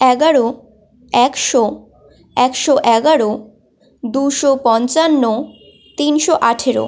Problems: constant background noise, continuous background conversations